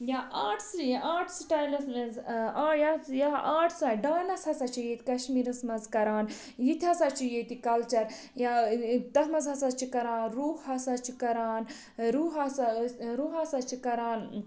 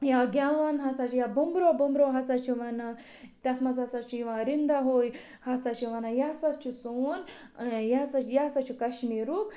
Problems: background sounds at intervals